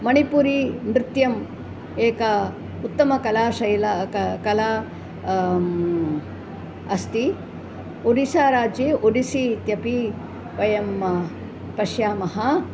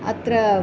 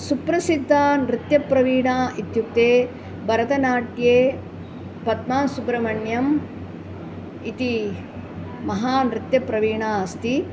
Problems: none marked